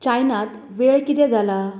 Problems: constant background noise